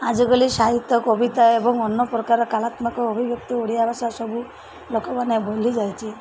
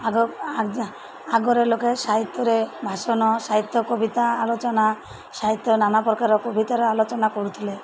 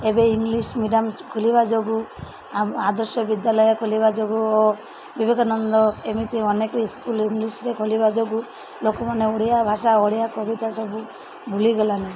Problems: constant background noise